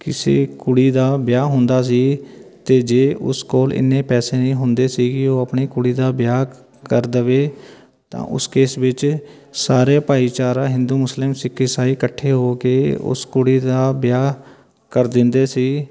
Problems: continuous background conversations